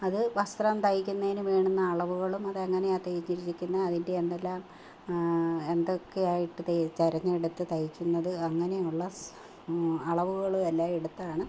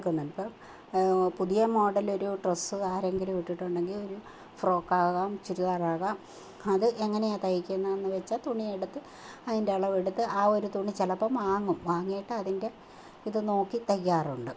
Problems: none marked